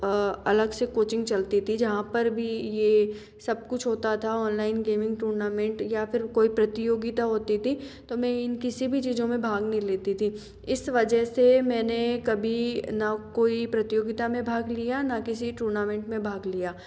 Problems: echo